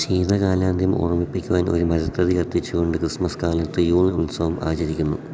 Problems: none marked